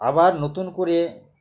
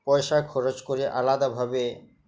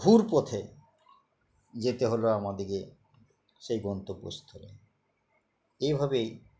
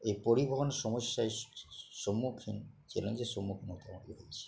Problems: background sounds at intervals